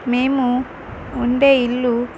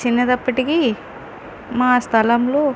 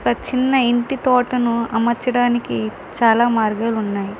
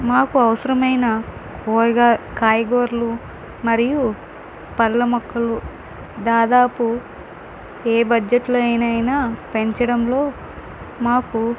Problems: constant background noise